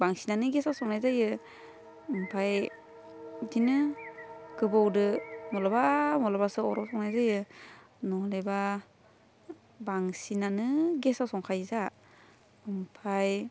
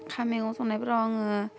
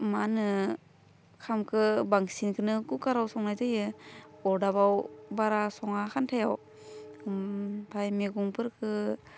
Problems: low volume